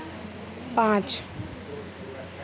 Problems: constant background noise, low volume